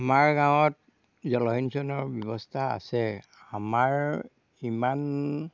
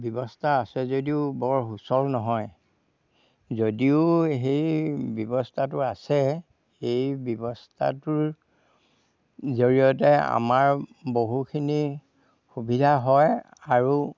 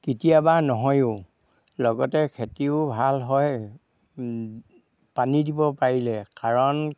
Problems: background sounds at intervals